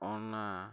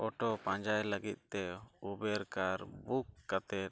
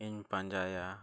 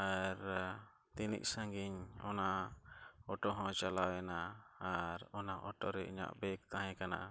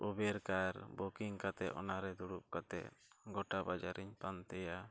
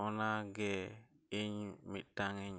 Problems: none marked